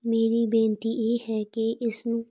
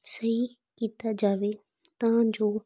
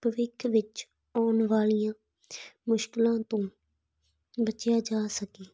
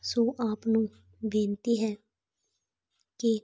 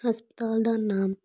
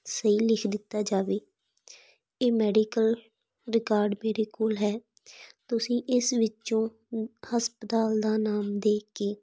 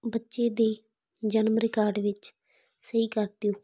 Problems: background sounds at intervals